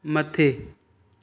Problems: none marked